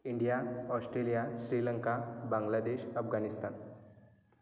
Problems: background sounds at intervals